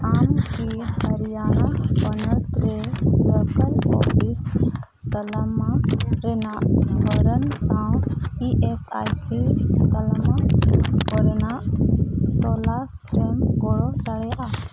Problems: none marked